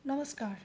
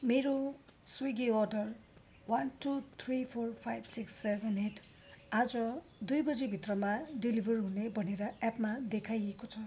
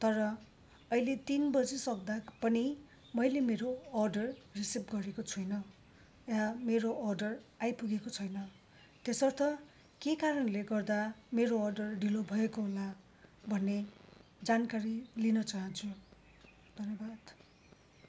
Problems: constant background noise